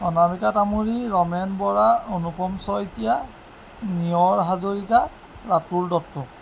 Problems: constant background noise